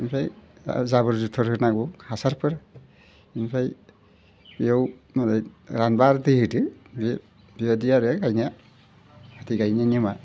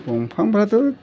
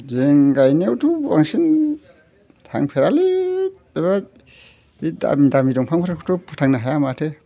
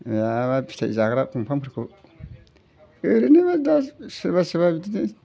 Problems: constant background noise